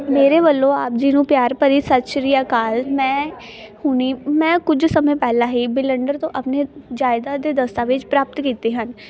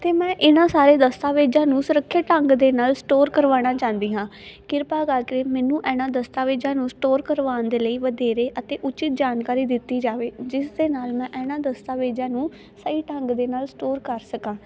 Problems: constant background noise, continuous background conversations